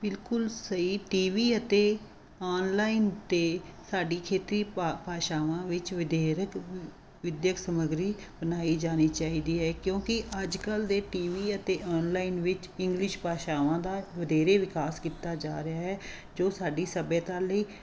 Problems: constant background noise